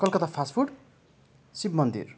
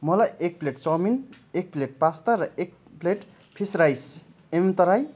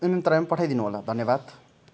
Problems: none marked